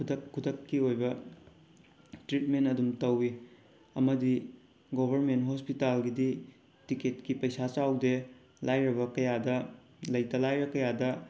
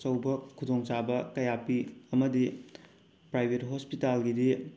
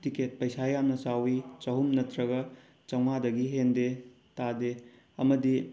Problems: background sounds at intervals